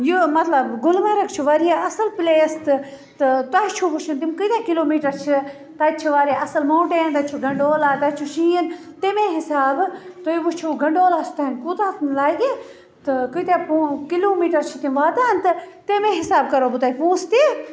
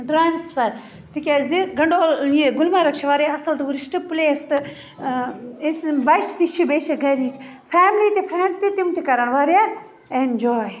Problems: constant background noise